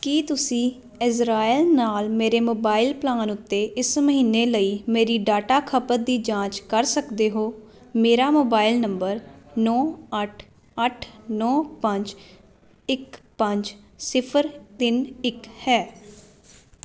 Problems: constant background noise